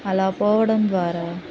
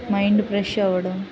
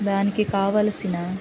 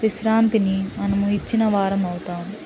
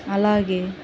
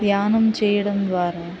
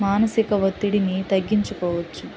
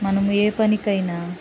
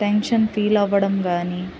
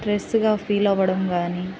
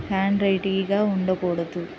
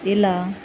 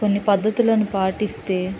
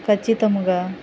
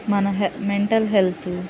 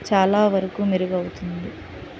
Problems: none marked